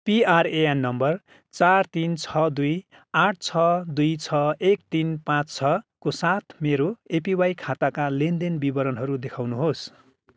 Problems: none marked